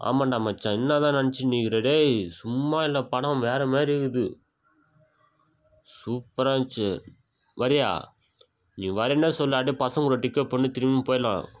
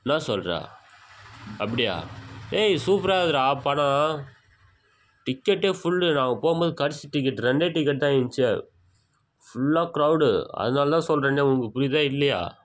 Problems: background sounds at intervals